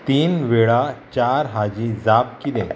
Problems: none marked